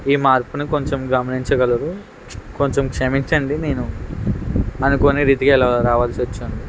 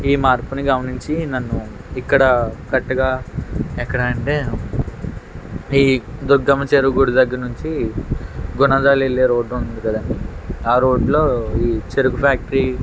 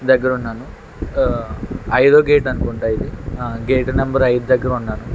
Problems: constant background noise